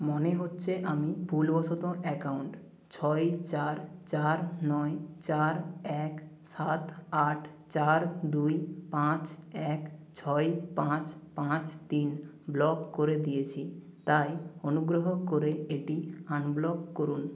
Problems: none marked